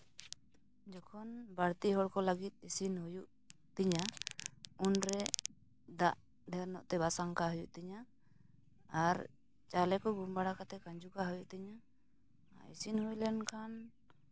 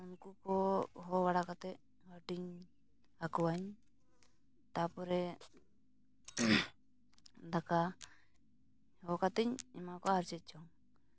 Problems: none marked